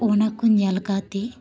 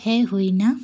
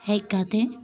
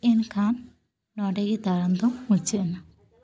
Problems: background conversations at intervals